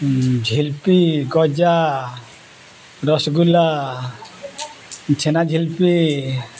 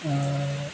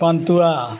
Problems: background sounds at intervals, background conversations at intervals